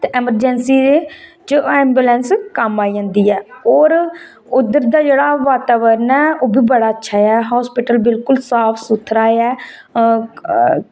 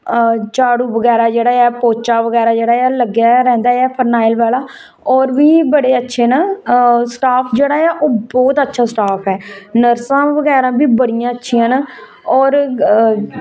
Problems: none marked